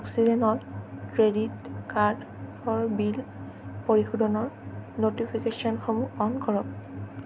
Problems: constant background noise